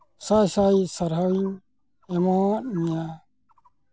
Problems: constant background noise